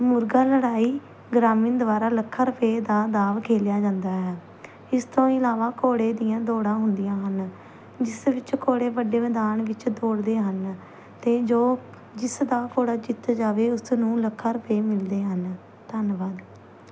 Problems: constant background noise